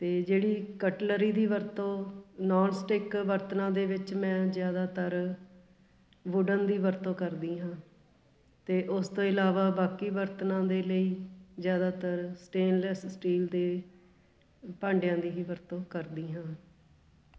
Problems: constant background noise, background conversations at intervals